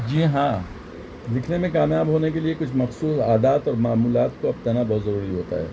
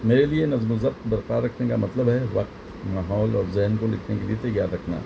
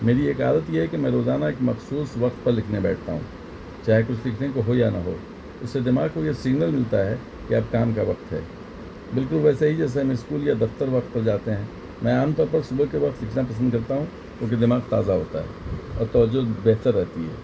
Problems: constant background noise